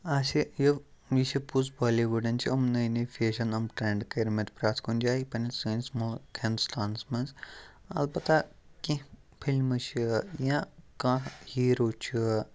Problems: background sounds at intervals